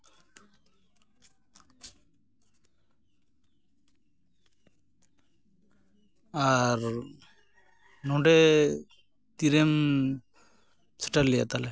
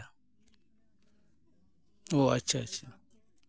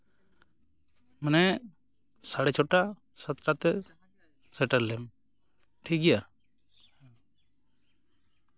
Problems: background sounds at intervals